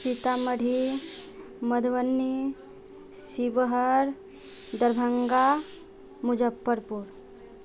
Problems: none marked